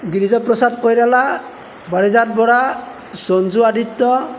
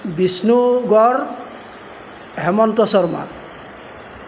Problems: none marked